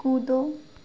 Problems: none marked